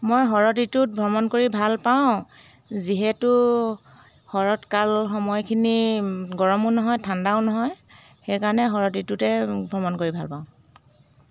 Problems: constant background noise